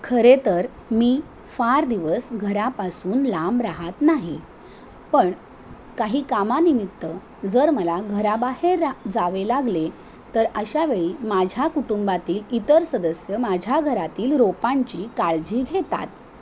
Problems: none marked